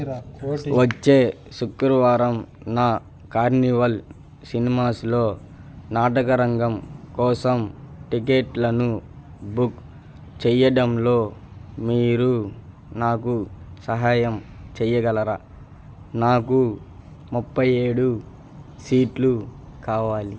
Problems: none marked